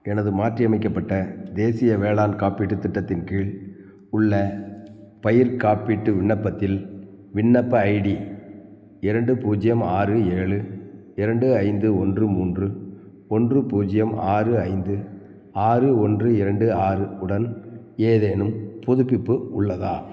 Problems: none marked